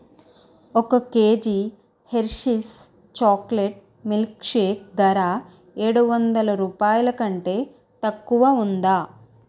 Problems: none marked